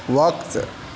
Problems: none marked